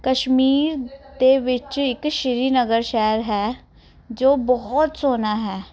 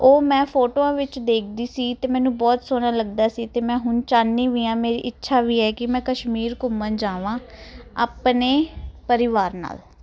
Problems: background conversations at intervals